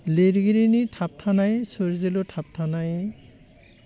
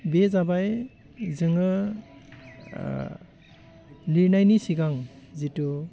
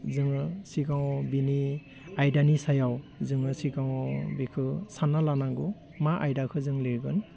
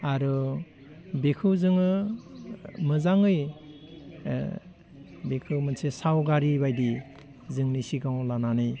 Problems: constant background noise